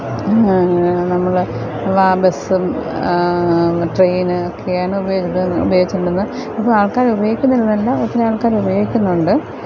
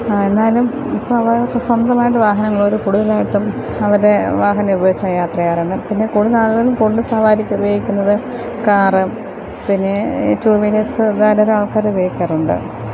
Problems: none marked